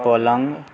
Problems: constant background noise